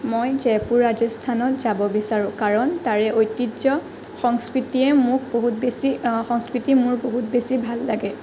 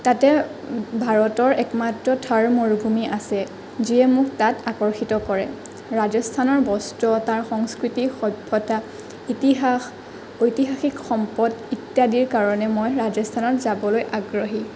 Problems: none marked